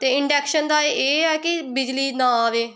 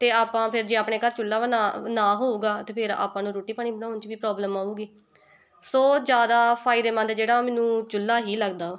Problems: background conversations at intervals